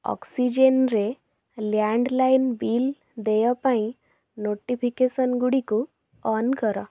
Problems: none marked